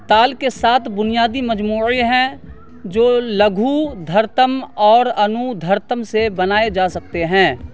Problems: constant background noise